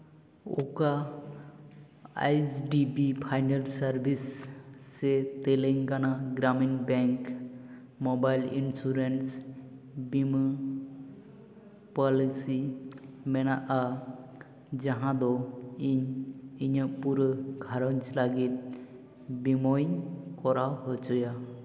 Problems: constant background noise, echo